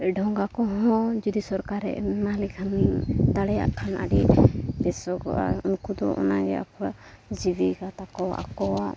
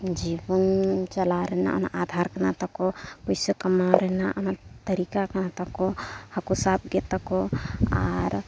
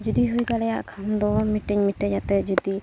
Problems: constant background noise